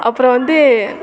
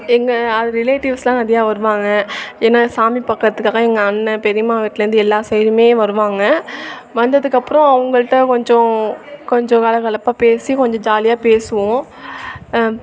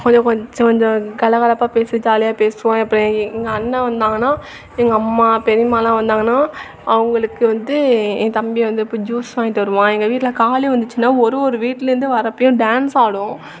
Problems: none marked